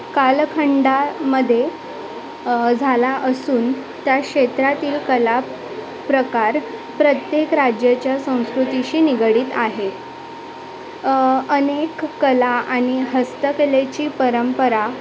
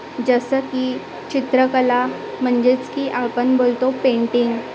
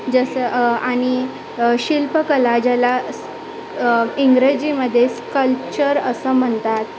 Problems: constant background noise, continuous background conversations